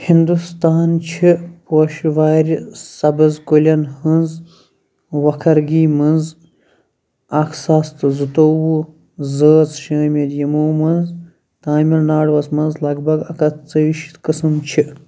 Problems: background sounds at intervals